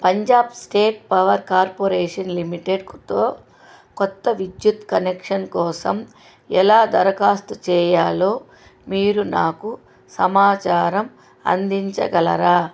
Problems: constant background noise